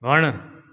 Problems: echo